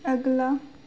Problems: none marked